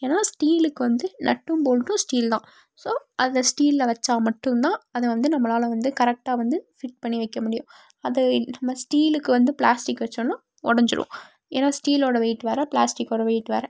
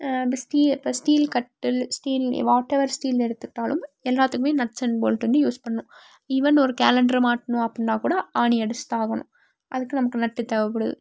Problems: none marked